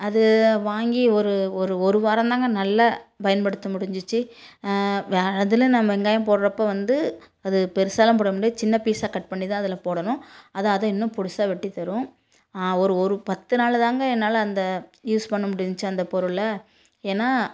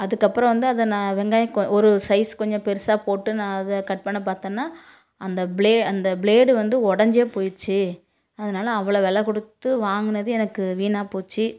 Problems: none marked